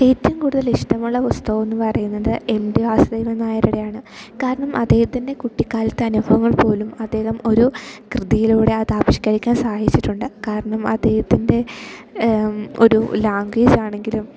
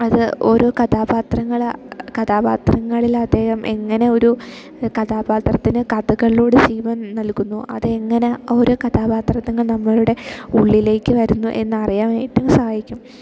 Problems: background sounds at intervals